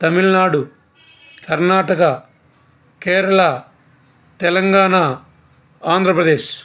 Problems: constant background noise